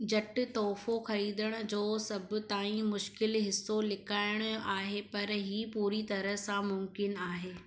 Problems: echo